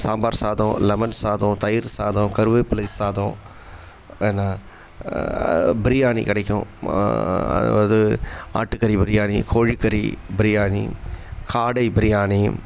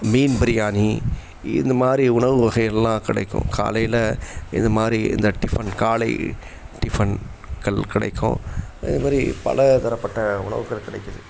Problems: background sounds at intervals